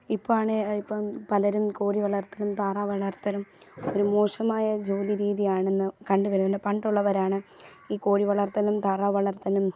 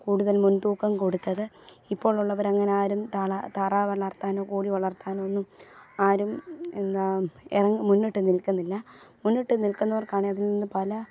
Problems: background sounds at intervals